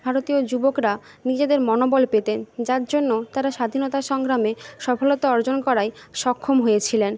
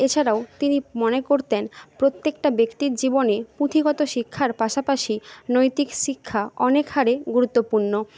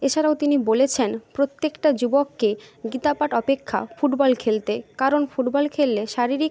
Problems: background conversations at intervals